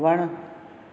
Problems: none marked